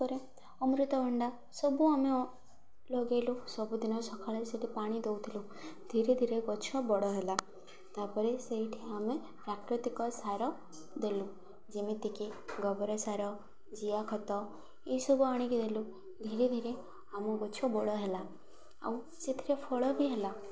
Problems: constant background noise, continuous background conversations